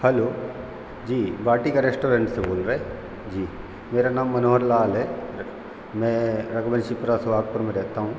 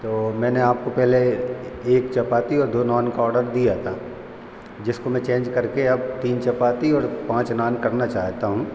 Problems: constant background noise